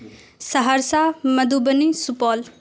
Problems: constant background noise